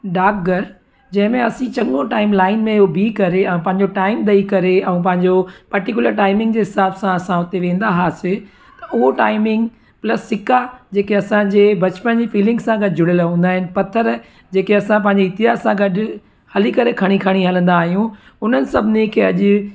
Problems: constant background noise, echo